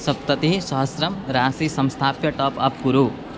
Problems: constant background noise